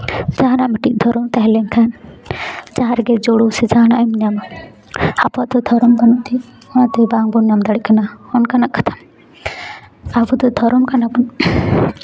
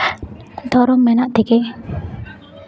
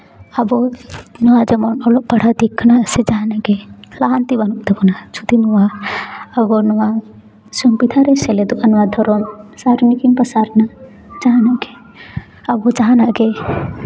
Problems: continuous background conversations